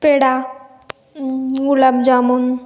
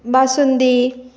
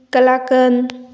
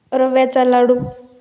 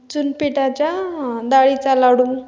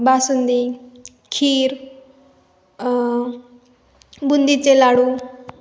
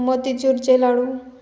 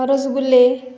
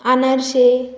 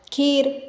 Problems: none marked